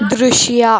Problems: background sounds at intervals